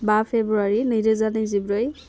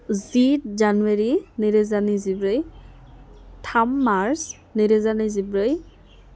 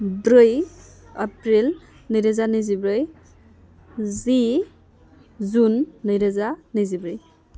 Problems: none marked